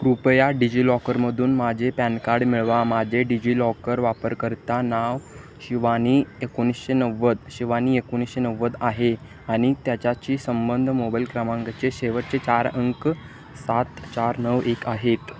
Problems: constant background noise